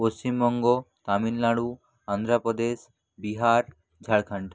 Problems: none marked